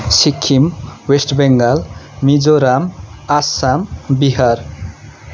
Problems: constant background noise